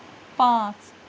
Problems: none marked